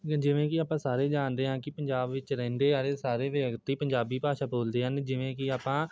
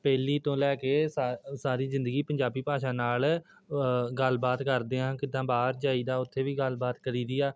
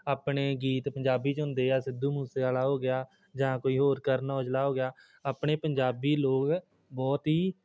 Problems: none marked